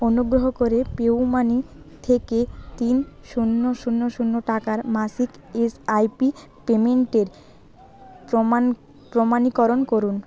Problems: continuous background conversations